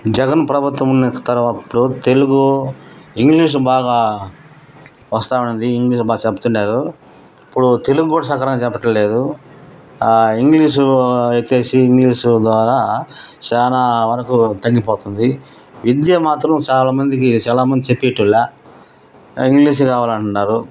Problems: background sounds at intervals